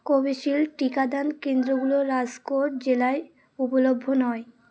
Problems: continuous background conversations